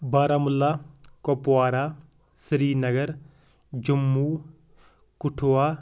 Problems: background sounds at intervals